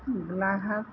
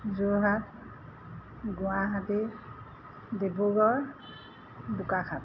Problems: none marked